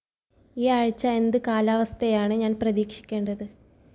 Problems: background conversations at intervals, low volume